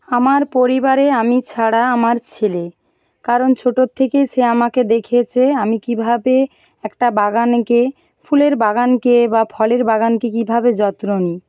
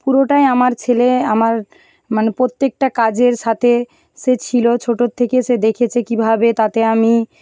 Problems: background sounds at intervals